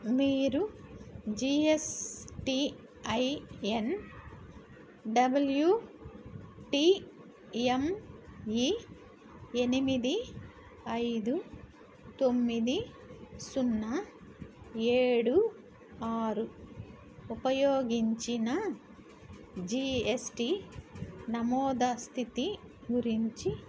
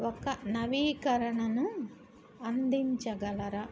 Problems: constant background noise